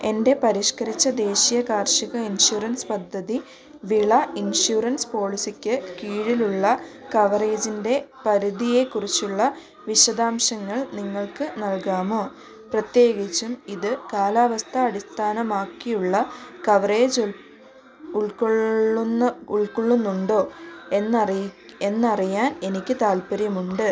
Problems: constant background noise